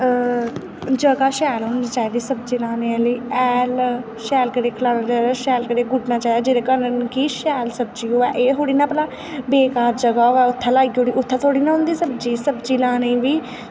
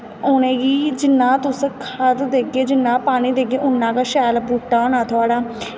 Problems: constant background noise, echo